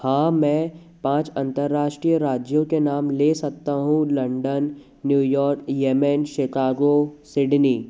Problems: constant background noise